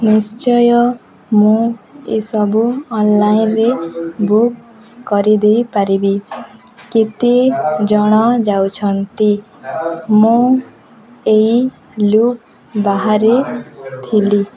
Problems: continuous background conversations